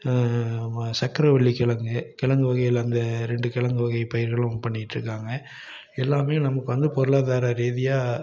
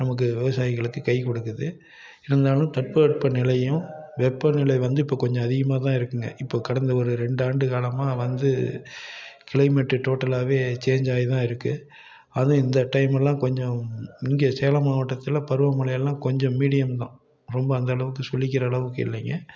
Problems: background sounds at intervals, continuous background conversations